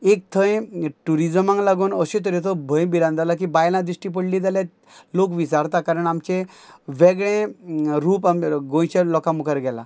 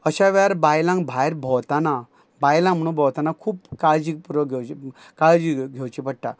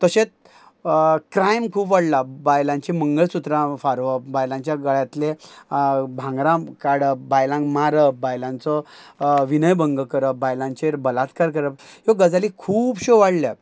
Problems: none marked